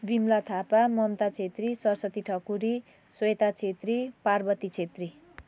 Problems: background conversations at intervals